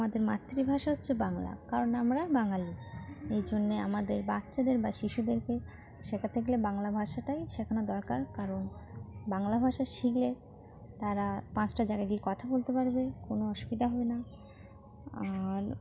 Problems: constant background noise, background conversations at intervals